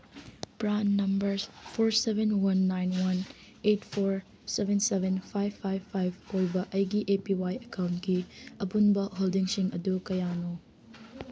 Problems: background sounds at intervals